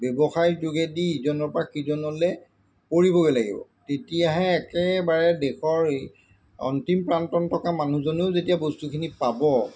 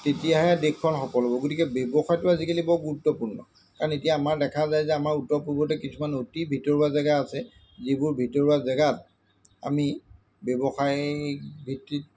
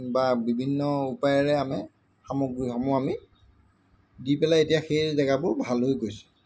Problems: constant background noise